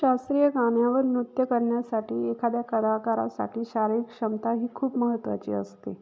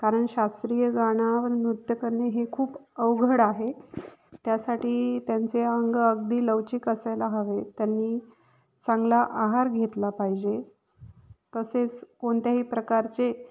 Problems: constant background noise, echo